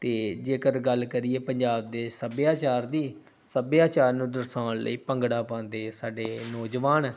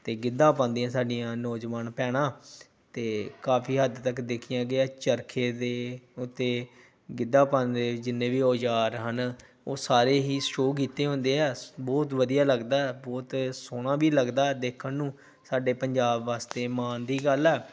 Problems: none marked